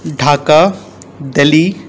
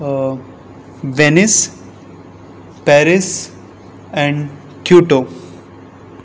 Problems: none marked